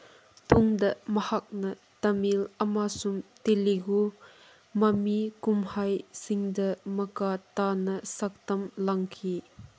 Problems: none marked